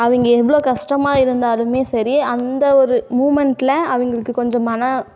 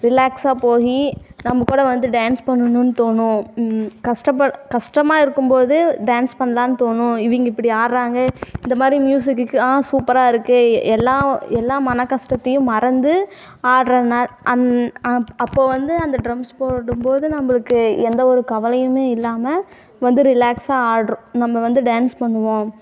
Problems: constant background noise